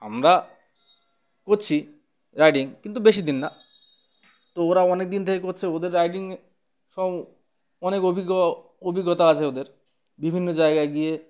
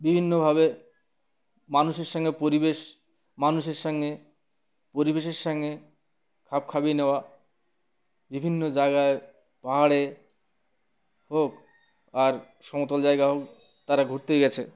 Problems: none marked